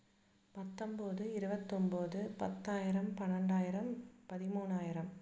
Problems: low volume